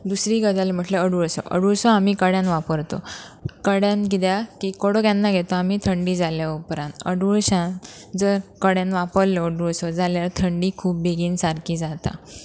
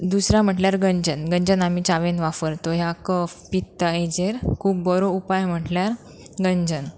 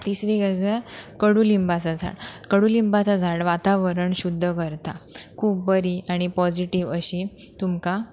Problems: background sounds at intervals